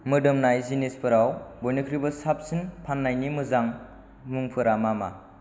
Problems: none marked